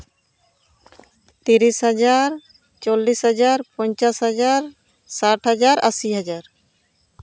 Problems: background sounds at intervals